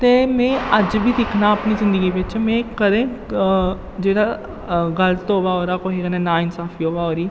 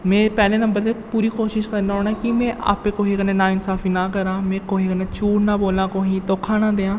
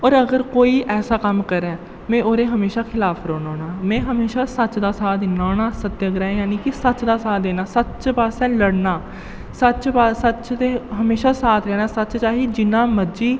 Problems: low volume